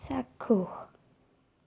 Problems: low volume